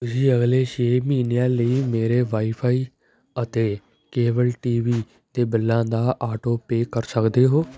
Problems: background sounds at intervals, background conversations at intervals